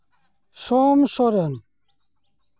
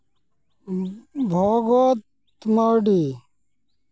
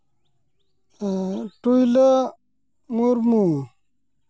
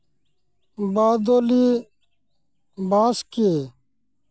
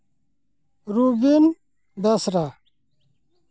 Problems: none marked